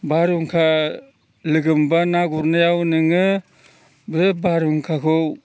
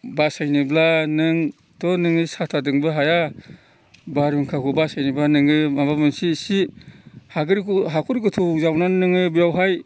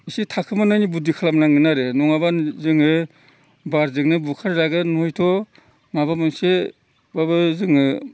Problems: constant background noise